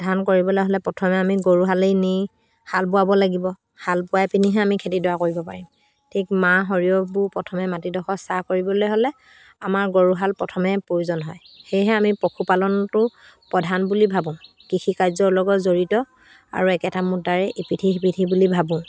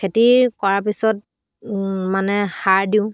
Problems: background sounds at intervals